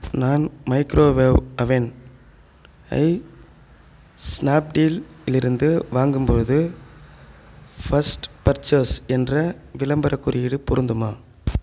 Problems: background sounds at intervals